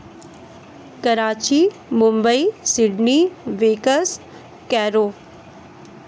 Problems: constant background noise